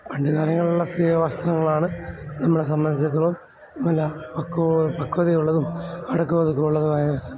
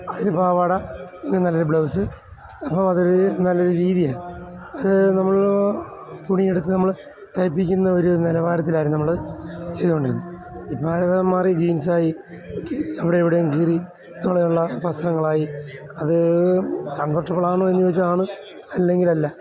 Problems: constant background noise